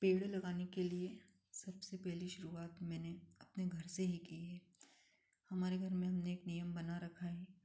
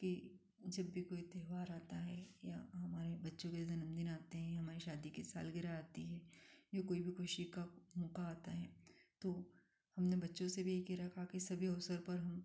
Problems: none marked